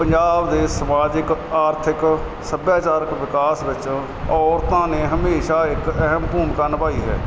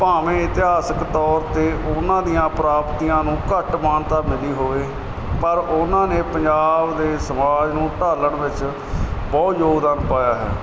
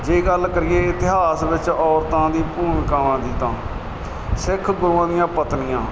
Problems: constant background noise